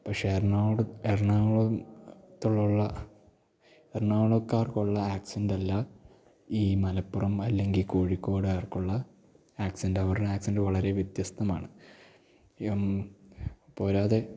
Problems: none marked